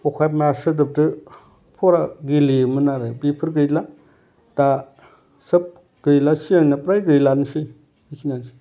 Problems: constant background noise